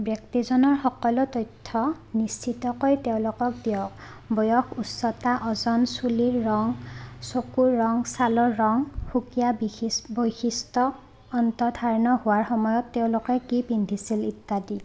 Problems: none marked